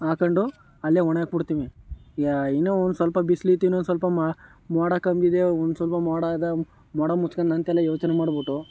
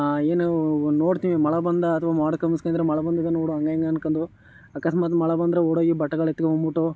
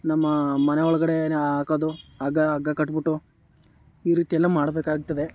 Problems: none marked